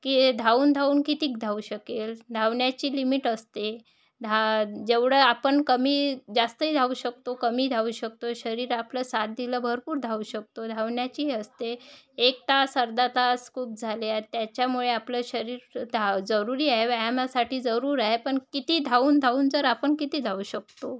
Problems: none marked